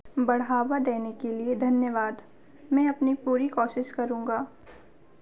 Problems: constant background noise